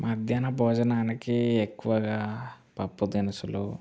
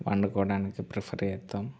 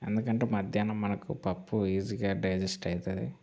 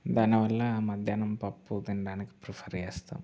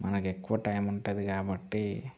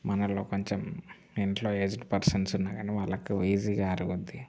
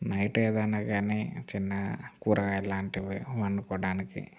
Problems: background sounds at intervals